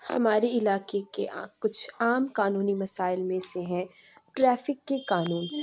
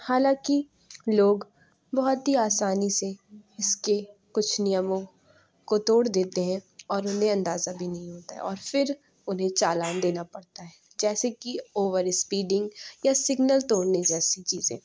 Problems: background sounds at intervals, background conversations at intervals